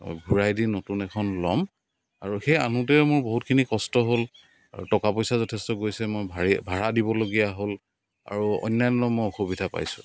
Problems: constant background noise